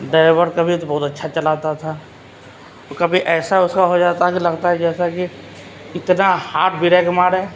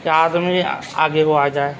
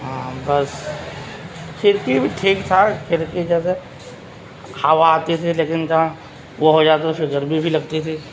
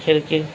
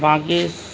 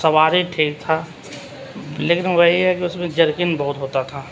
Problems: constant background noise, background conversations at intervals